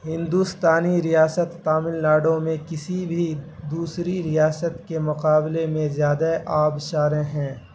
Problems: constant background noise